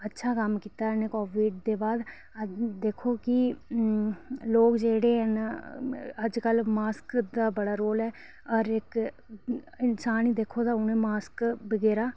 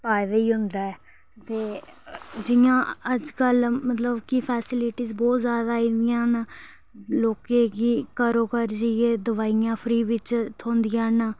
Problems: none marked